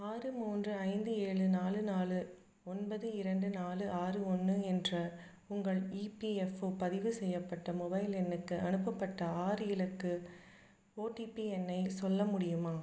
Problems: low volume